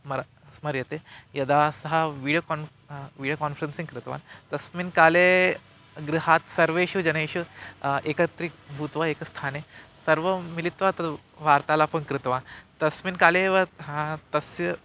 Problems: constant background noise